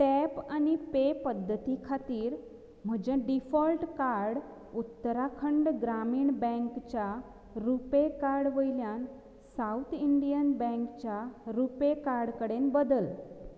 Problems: low volume